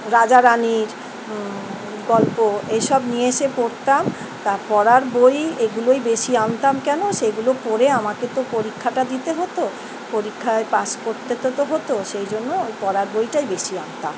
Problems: constant background noise